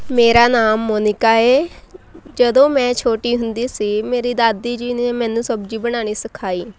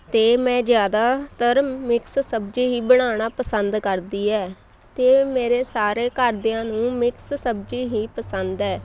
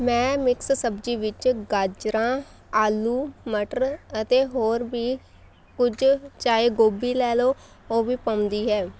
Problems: none marked